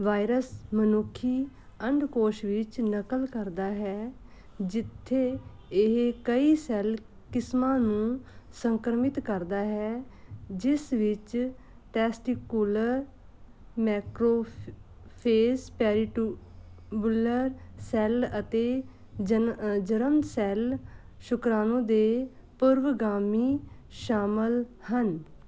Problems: constant background noise